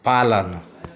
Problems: none marked